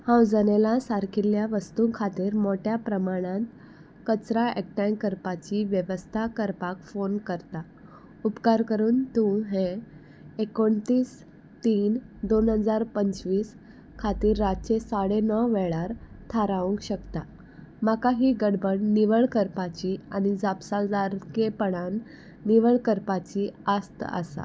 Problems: constant background noise